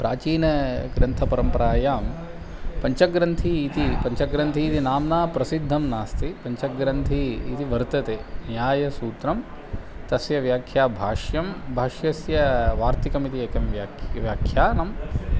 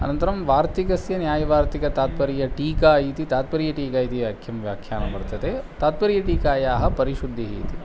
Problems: none marked